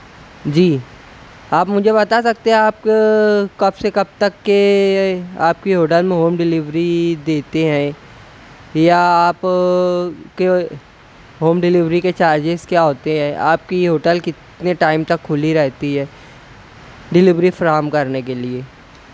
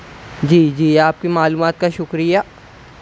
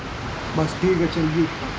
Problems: constant background noise